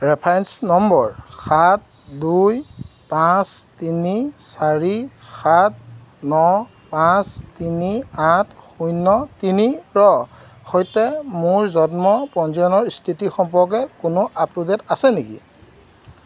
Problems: constant background noise